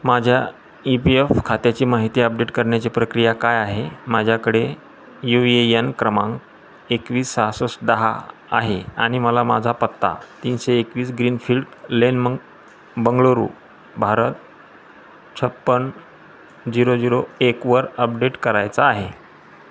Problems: constant background noise